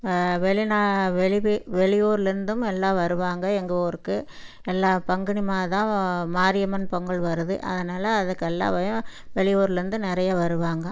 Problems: none marked